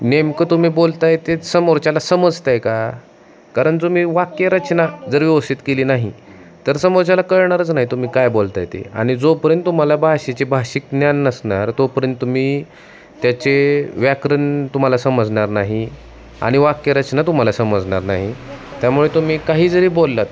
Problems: constant background noise, background conversations at intervals